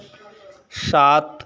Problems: constant background noise, continuous background conversations